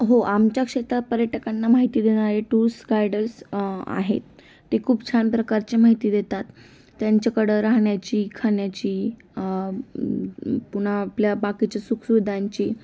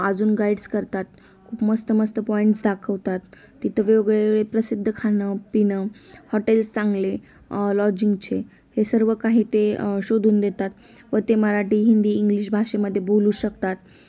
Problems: background sounds at intervals